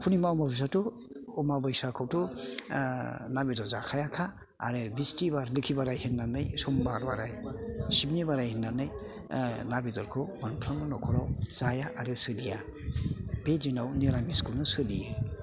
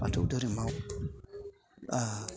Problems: constant background noise